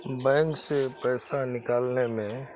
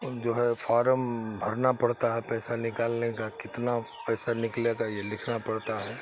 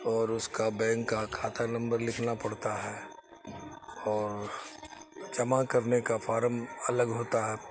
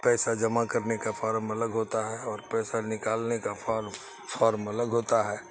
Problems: constant background noise